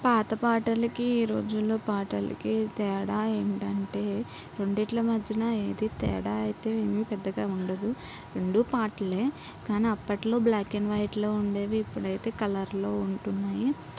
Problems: none marked